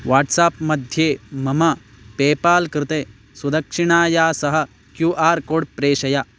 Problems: constant background noise